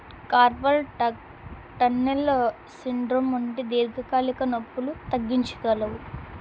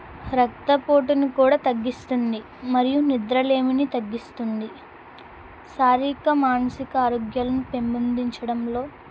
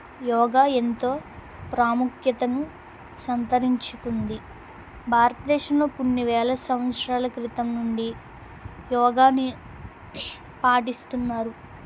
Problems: constant background noise